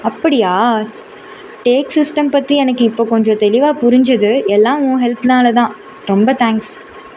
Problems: constant background noise